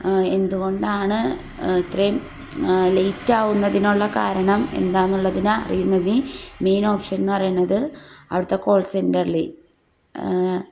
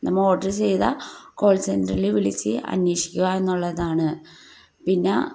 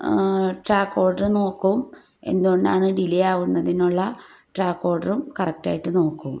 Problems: low volume